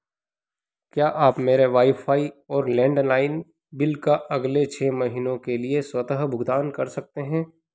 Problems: none marked